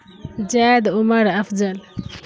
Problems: constant background noise